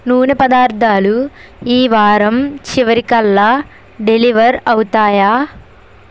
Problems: constant background noise